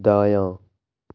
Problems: low volume